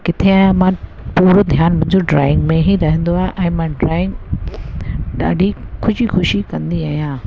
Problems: constant background noise